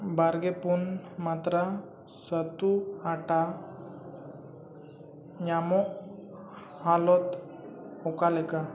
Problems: low volume